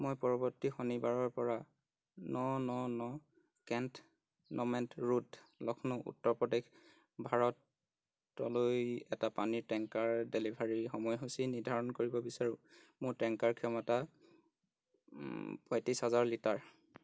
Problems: constant background noise